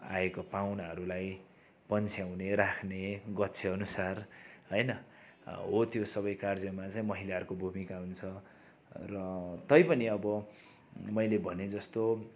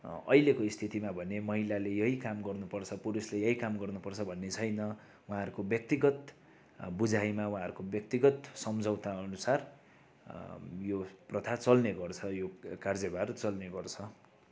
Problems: background sounds at intervals